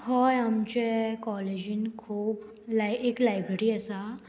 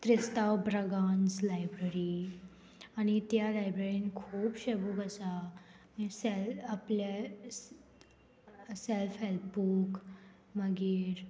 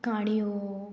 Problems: none marked